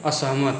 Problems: none marked